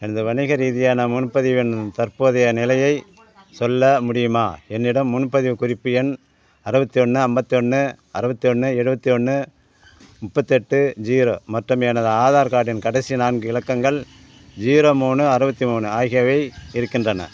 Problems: none marked